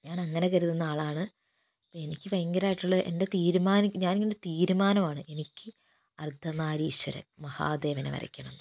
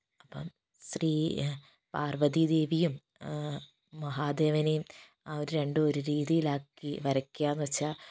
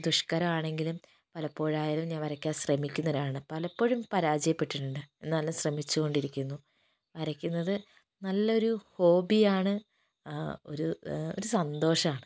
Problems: background sounds at intervals, low volume